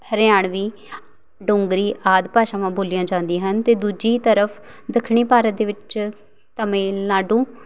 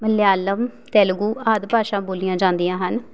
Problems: none marked